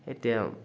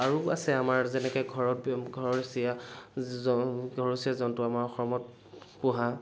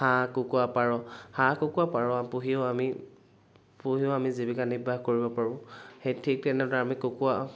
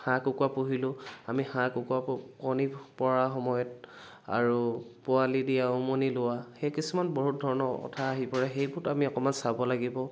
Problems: background sounds at intervals